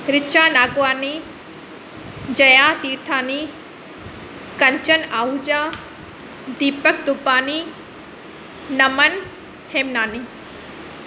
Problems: constant background noise